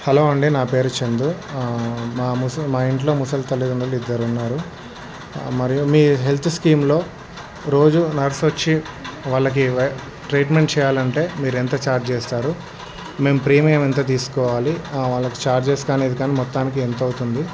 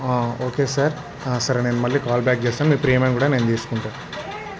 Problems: background sounds at intervals